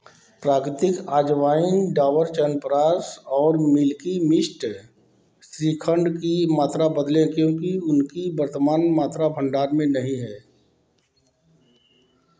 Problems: none marked